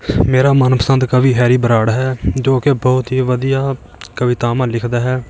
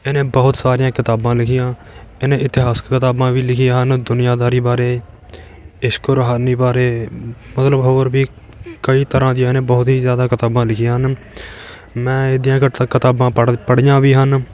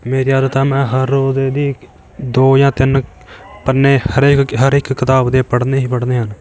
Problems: background sounds at intervals